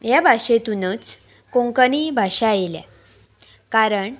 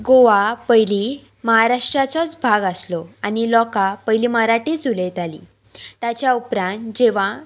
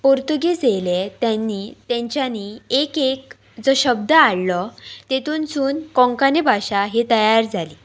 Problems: background sounds at intervals